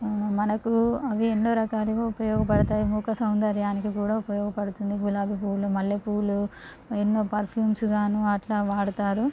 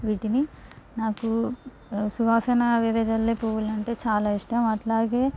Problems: constant background noise